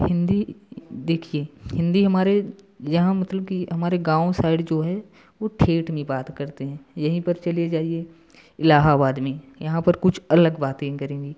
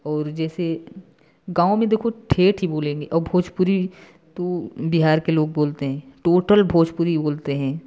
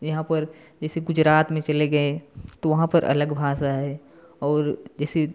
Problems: constant background noise